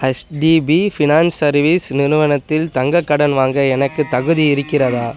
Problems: constant background noise